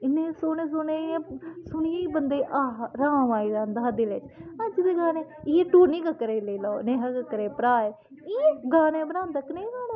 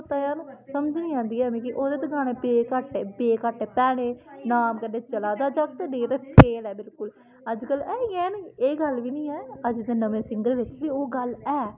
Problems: constant background noise, background conversations at intervals